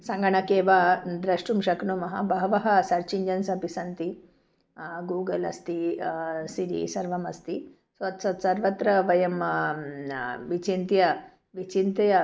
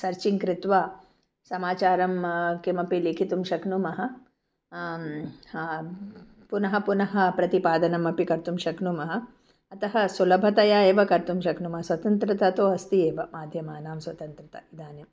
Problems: background sounds at intervals